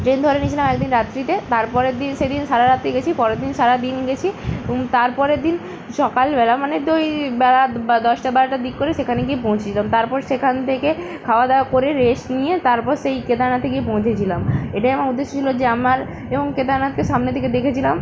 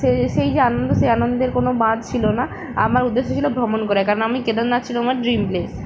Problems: constant background noise